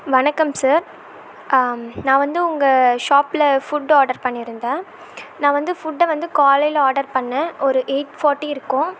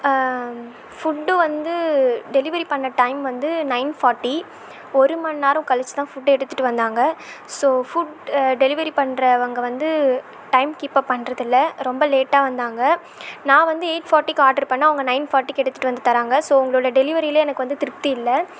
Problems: none marked